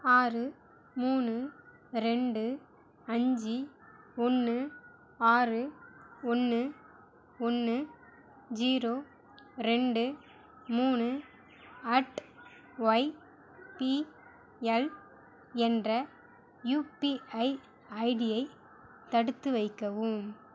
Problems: none marked